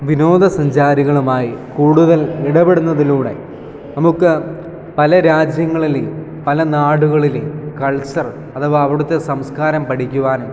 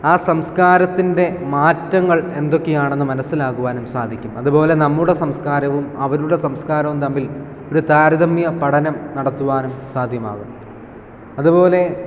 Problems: background conversations at intervals